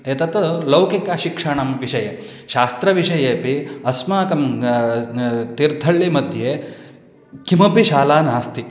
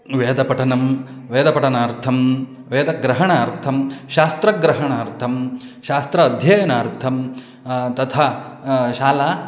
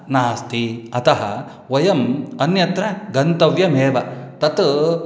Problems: none marked